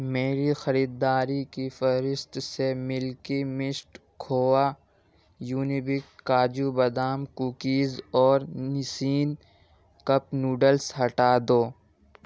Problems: background sounds at intervals